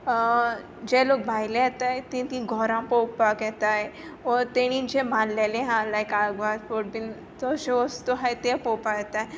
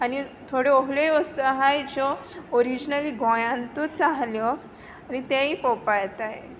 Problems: background sounds at intervals